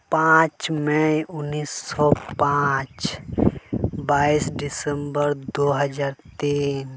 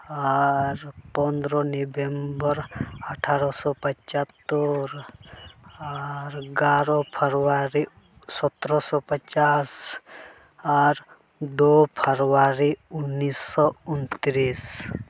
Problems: constant background noise